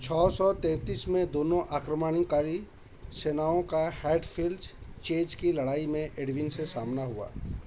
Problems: none marked